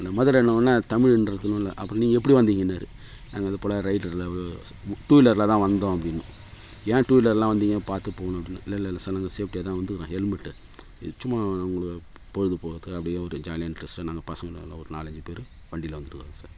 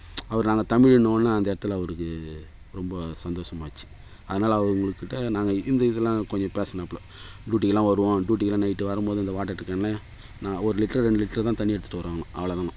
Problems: background sounds at intervals